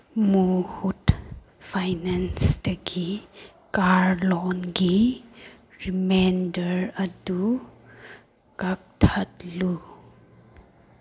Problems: background sounds at intervals